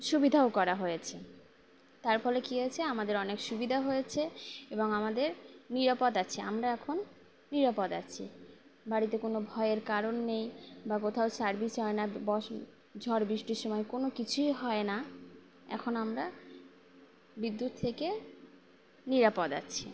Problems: none marked